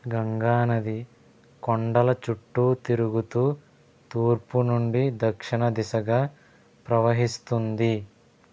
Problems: constant background noise